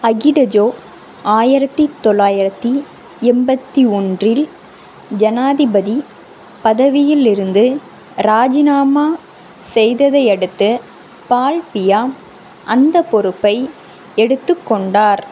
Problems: constant background noise